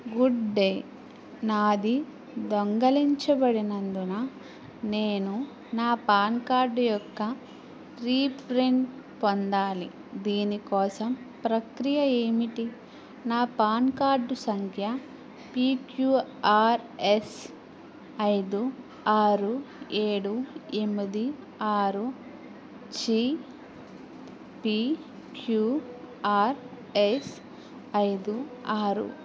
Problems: none marked